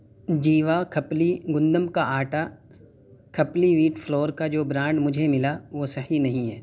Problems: none marked